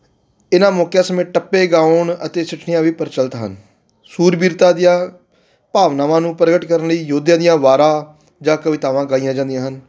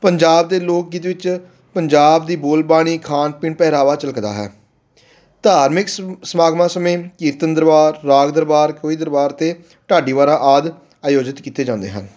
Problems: background sounds at intervals